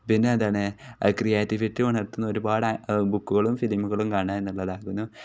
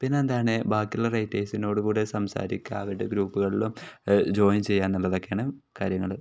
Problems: none marked